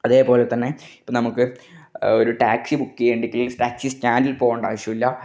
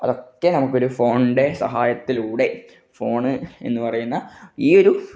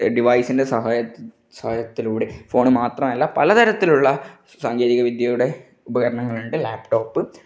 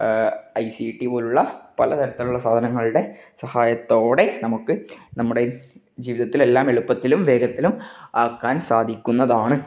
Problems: none marked